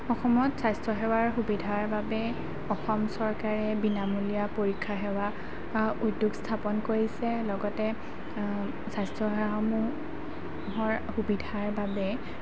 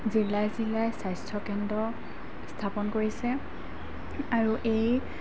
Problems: constant background noise